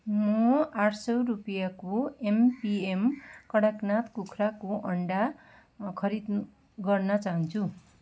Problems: background sounds at intervals